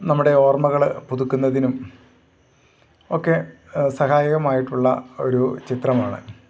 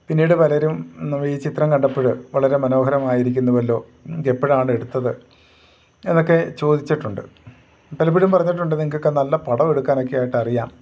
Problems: none marked